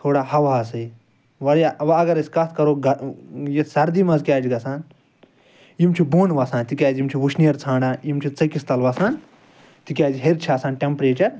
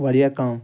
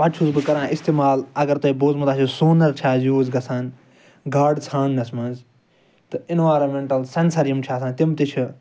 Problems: background sounds at intervals